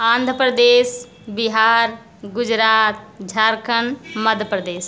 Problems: background sounds at intervals